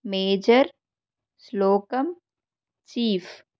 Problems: constant background noise